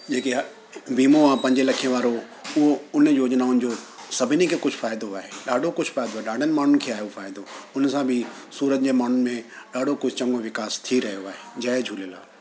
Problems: constant background noise